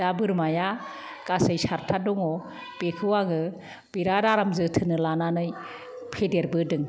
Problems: none marked